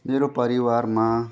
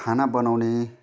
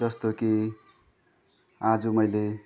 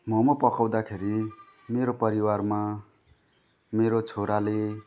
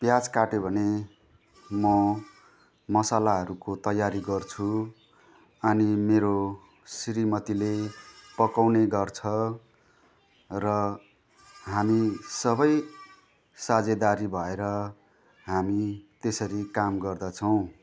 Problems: constant background noise, continuous background conversations